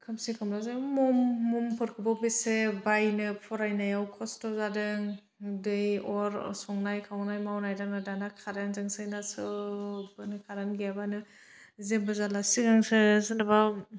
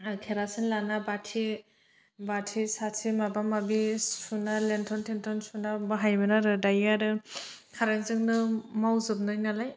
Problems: none marked